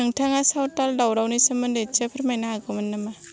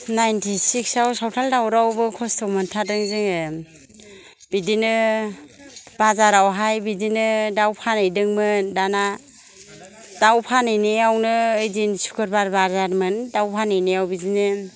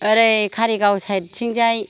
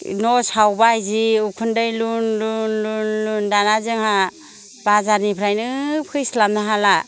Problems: none marked